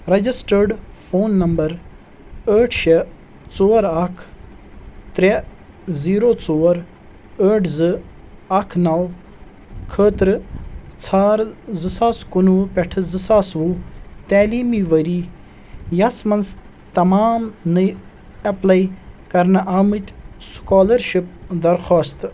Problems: constant background noise